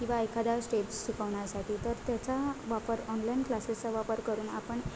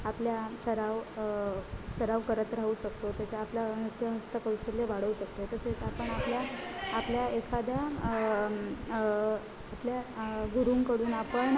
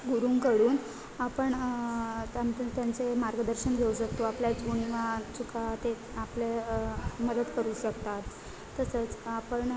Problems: constant background noise, continuous background conversations